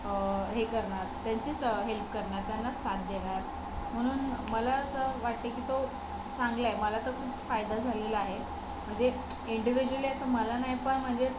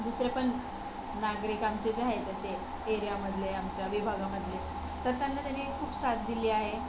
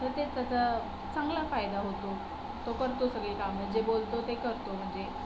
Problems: constant background noise